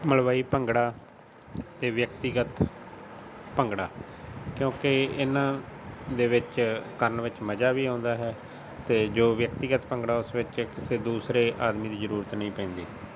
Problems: constant background noise